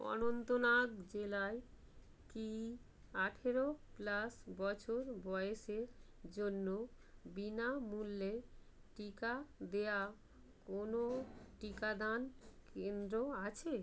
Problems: none marked